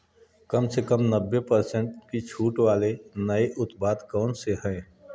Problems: background sounds at intervals